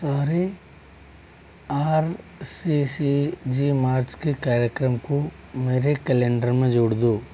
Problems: constant background noise